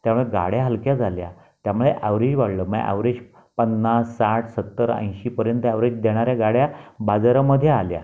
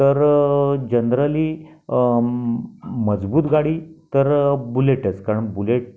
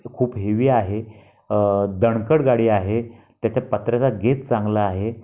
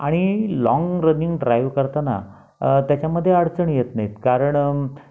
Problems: background sounds at intervals